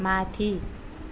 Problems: background sounds at intervals